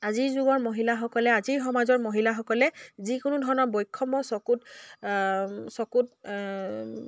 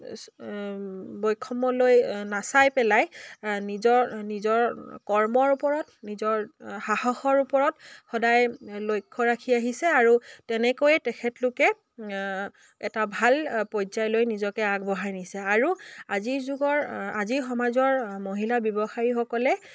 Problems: none marked